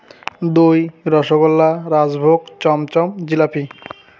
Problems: constant background noise